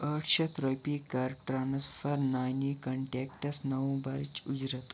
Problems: constant background noise